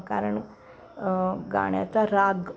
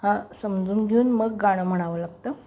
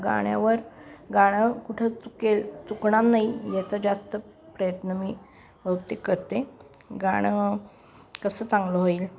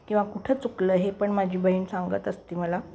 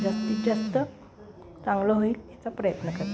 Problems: constant background noise, continuous background conversations